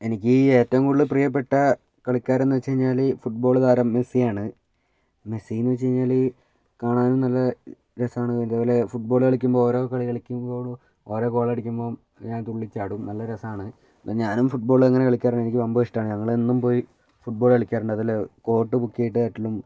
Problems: none marked